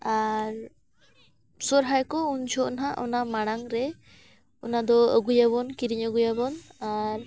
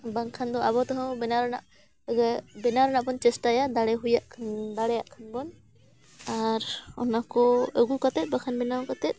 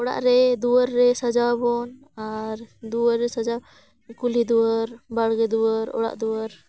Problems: background sounds at intervals, background conversations at intervals